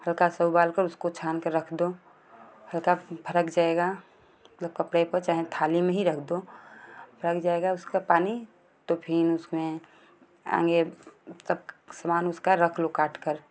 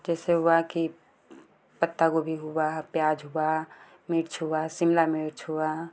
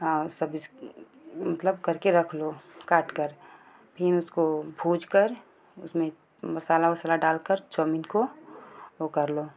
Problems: constant background noise